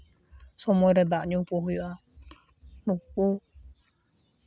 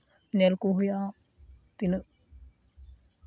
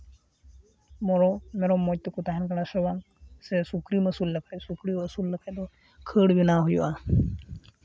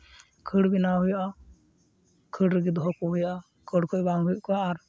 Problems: none marked